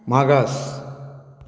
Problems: low volume